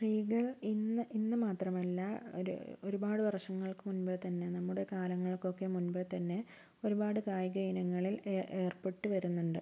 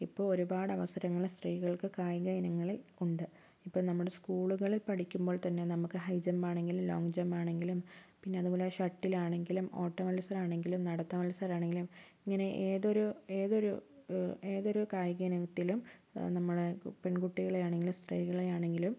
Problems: constant background noise, low volume